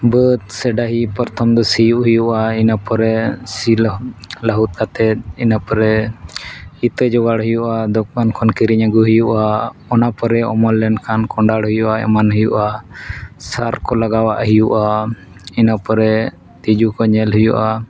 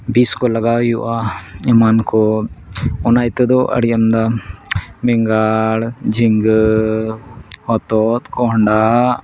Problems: none marked